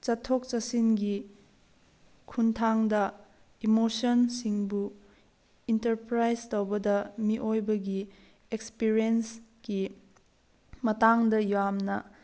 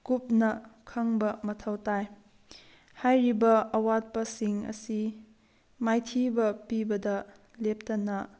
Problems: none marked